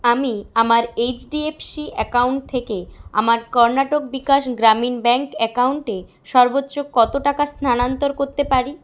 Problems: none marked